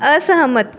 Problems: constant background noise